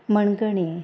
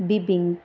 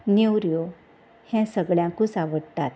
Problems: constant background noise